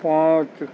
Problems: constant background noise, low volume